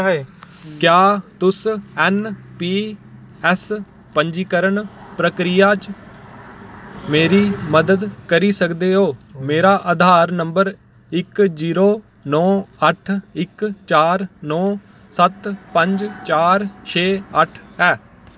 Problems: none marked